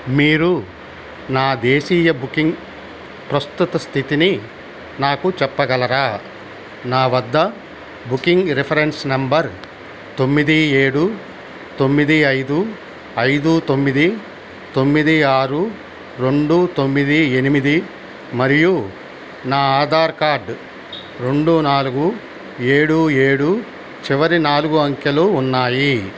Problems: constant background noise